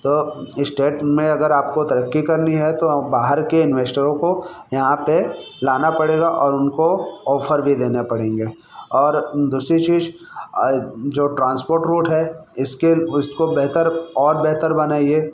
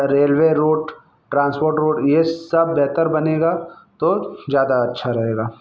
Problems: background sounds at intervals